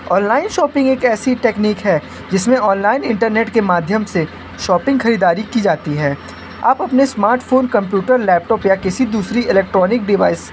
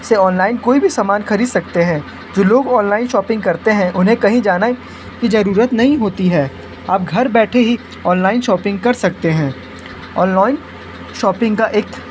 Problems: constant background noise